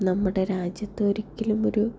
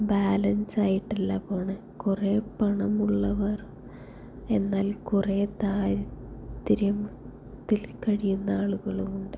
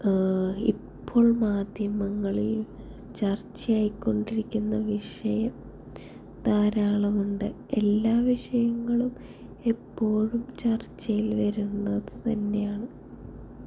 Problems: low volume